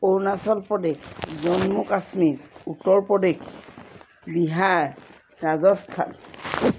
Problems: constant background noise